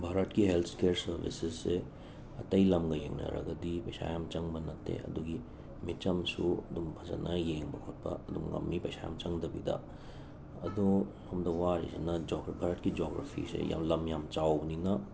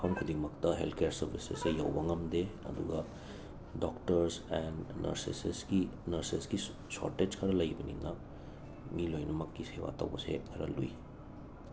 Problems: constant background noise, low volume